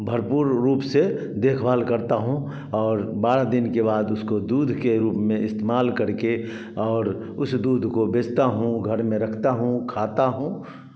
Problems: background sounds at intervals, background conversations at intervals, echo